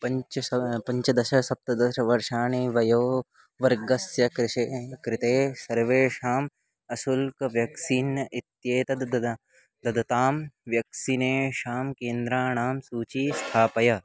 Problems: none marked